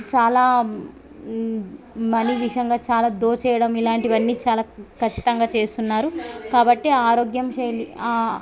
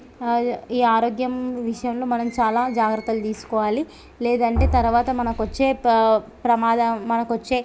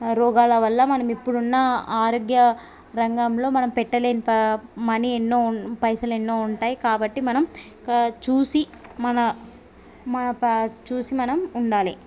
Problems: background sounds at intervals, background conversations at intervals